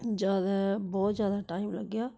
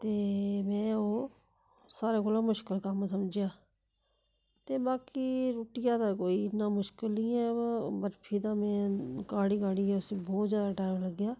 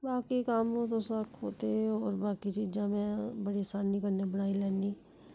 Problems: background sounds at intervals